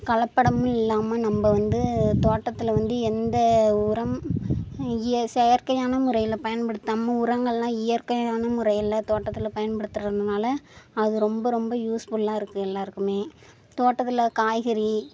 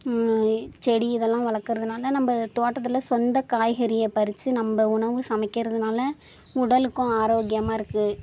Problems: none marked